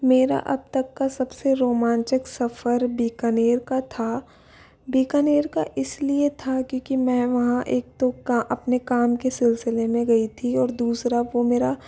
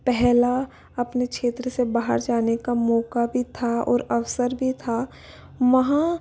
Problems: background sounds at intervals